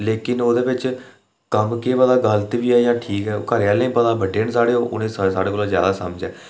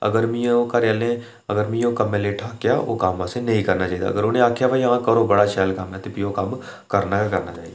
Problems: none marked